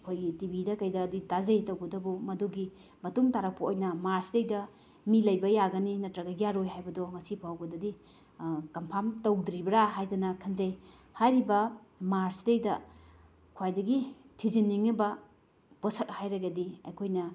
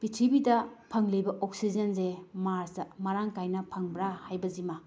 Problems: background sounds at intervals